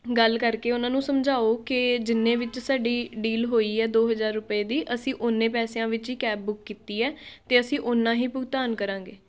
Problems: background sounds at intervals, background conversations at intervals